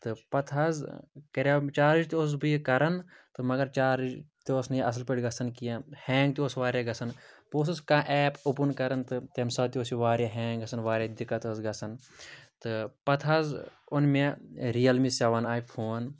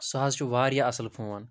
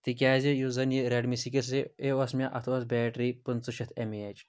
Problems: none marked